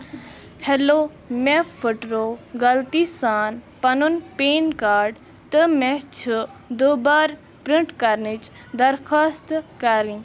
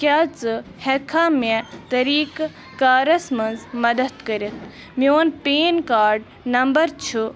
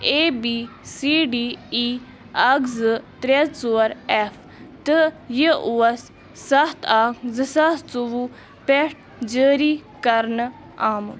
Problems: constant background noise